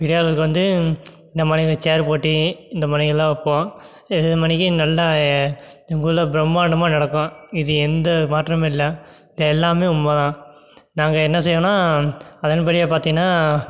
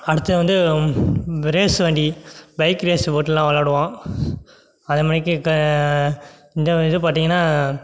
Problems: none marked